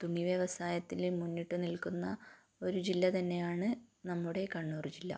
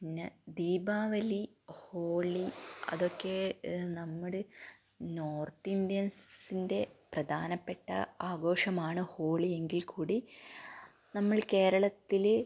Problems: low volume